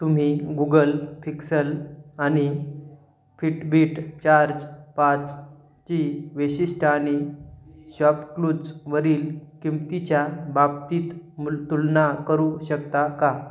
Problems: background sounds at intervals